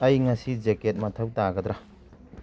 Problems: none marked